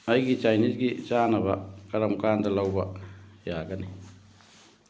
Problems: background conversations at intervals